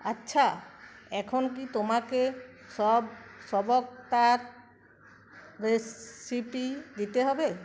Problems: constant background noise